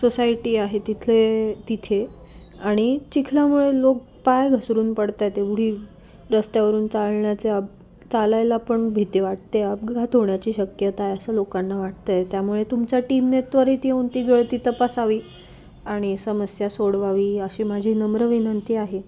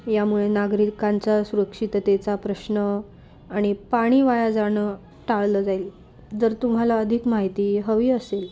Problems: constant background noise, low volume